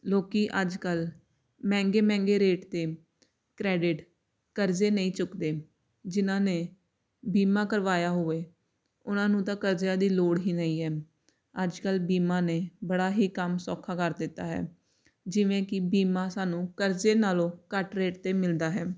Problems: none marked